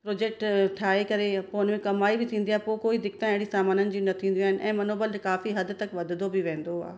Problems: background sounds at intervals, echo